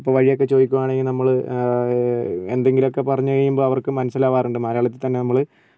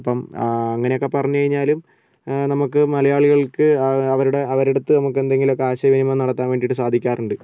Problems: none marked